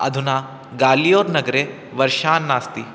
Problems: constant background noise